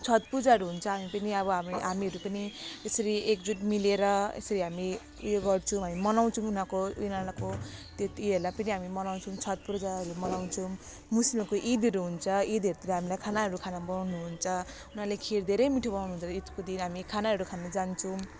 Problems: constant background noise